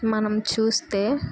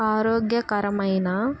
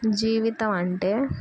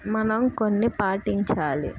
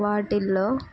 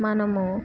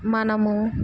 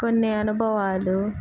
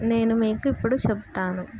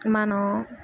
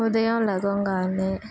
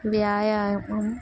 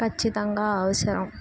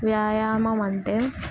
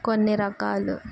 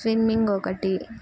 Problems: none marked